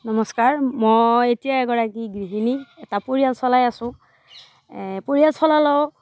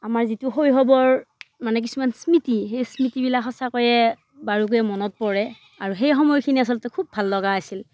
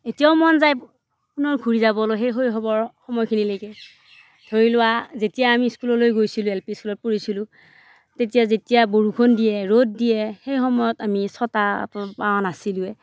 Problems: none marked